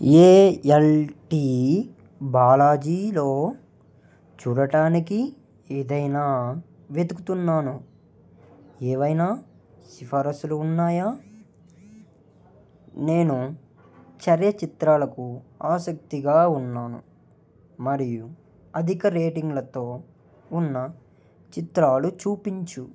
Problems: none marked